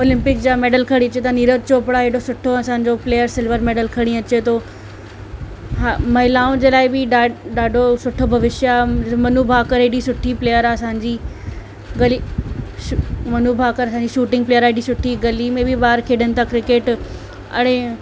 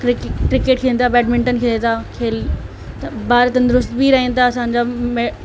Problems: constant background noise